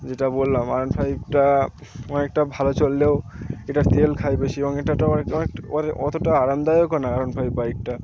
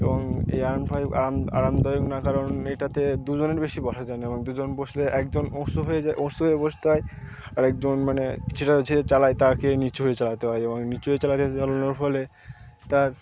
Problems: constant background noise, continuous background conversations